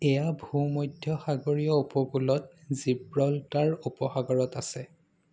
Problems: background sounds at intervals